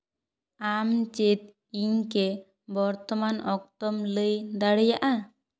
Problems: echo